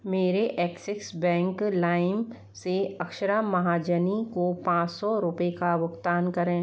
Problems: none marked